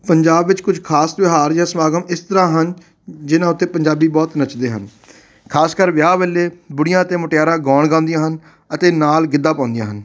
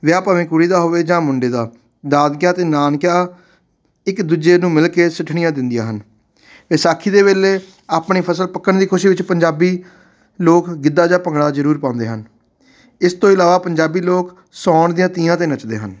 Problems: background sounds at intervals